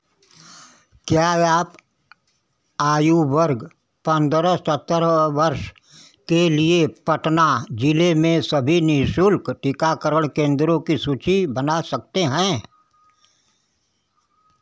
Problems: none marked